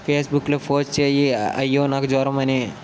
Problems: constant background noise